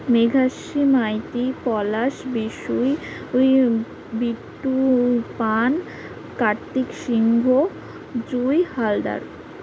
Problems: none marked